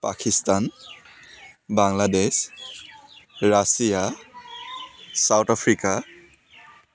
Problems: constant background noise, background conversations at intervals